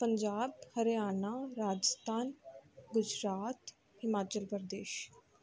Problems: background sounds at intervals